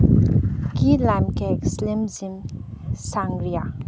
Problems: low volume